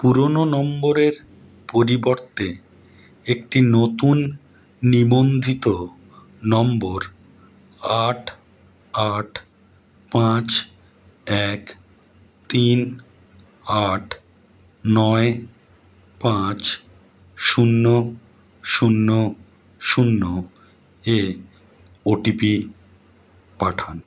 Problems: background sounds at intervals